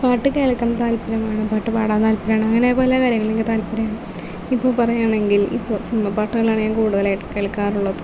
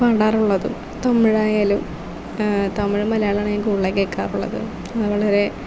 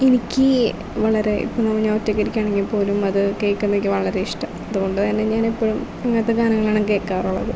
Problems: constant background noise, low volume